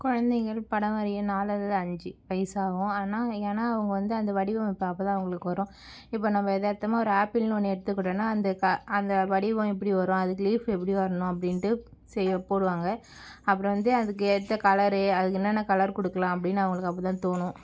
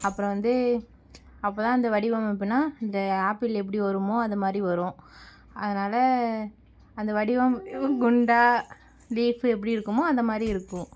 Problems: none marked